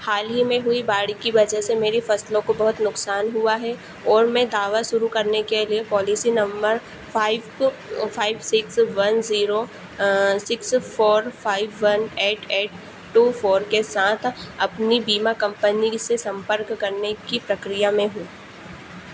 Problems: constant background noise